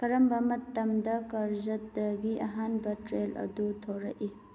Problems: background sounds at intervals